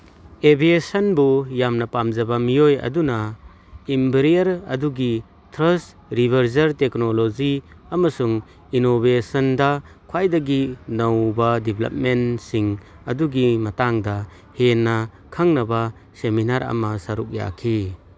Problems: none marked